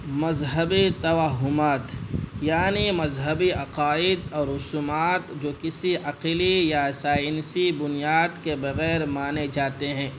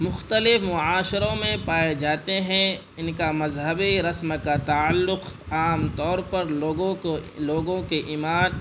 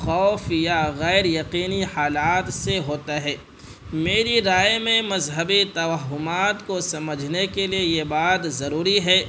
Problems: constant background noise